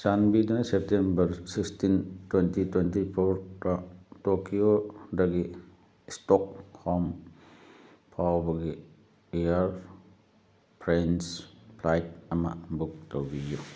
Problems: background sounds at intervals